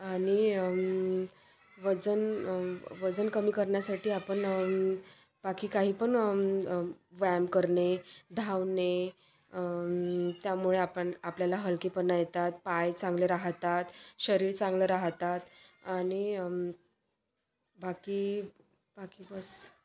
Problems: none marked